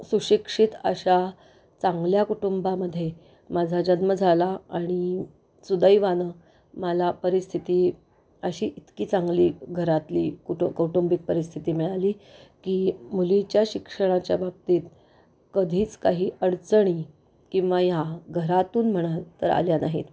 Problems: none marked